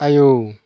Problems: none marked